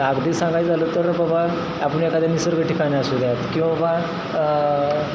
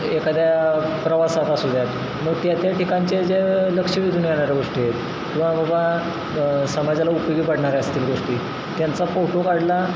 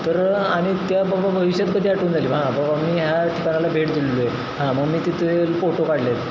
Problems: constant background noise